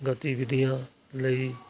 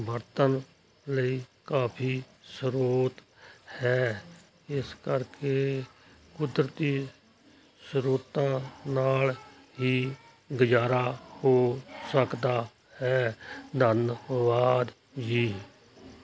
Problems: constant background noise